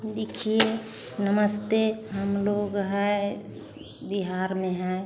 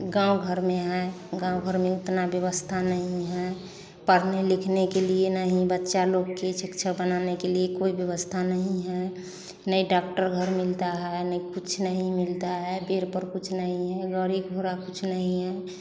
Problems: constant background noise